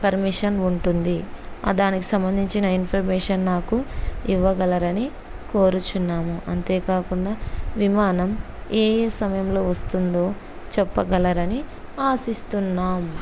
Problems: none marked